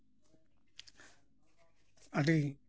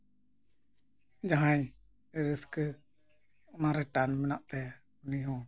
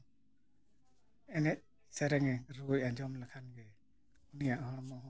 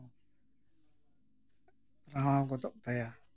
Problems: none marked